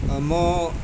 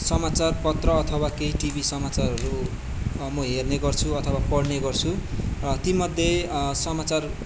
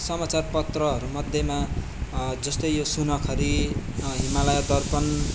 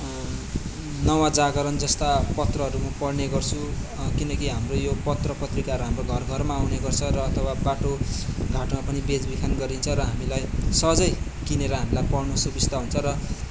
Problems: constant background noise